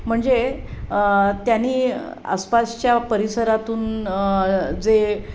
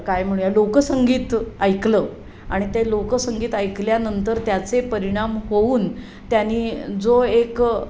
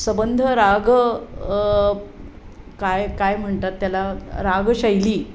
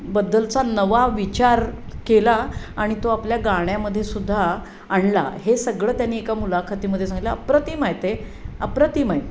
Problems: none marked